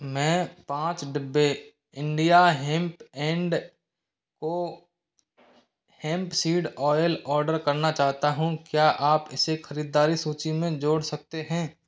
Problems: background sounds at intervals